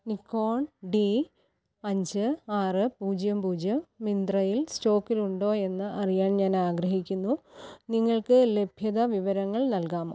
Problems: low volume